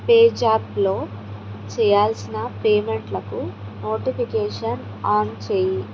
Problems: constant background noise